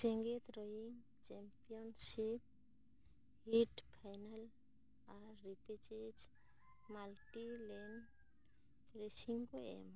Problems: low volume